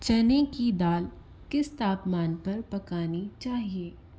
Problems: constant background noise